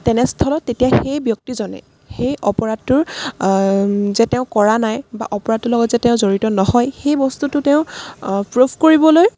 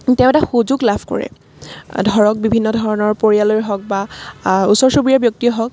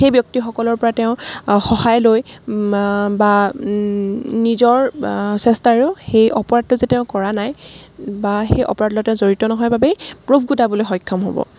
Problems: background sounds at intervals